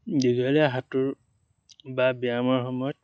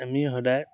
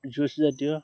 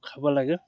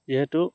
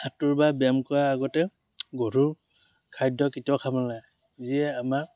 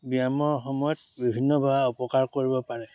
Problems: background sounds at intervals